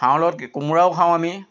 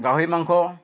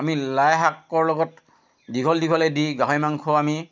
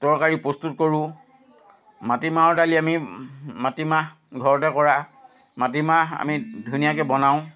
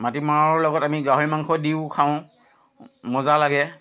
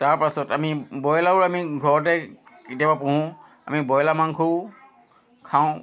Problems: constant background noise